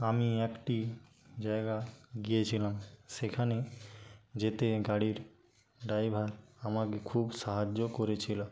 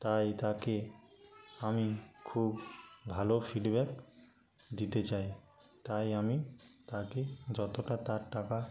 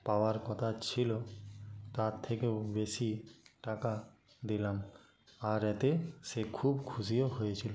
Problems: background sounds at intervals, background conversations at intervals, low volume